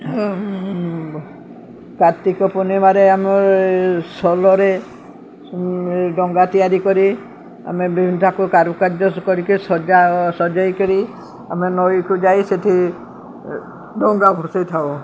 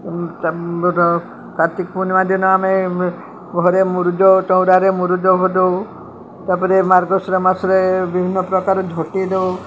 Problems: none marked